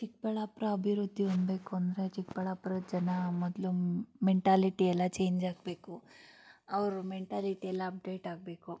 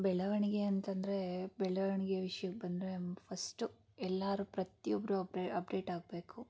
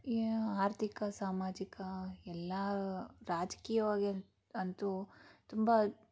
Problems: none marked